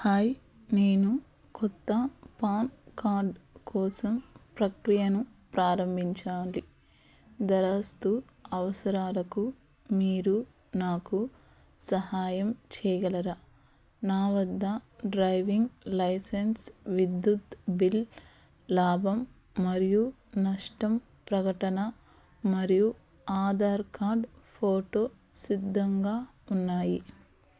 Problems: none marked